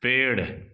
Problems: background sounds at intervals